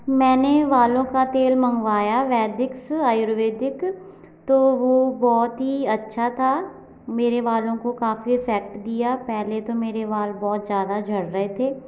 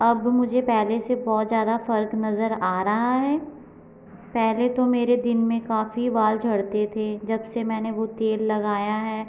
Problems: constant background noise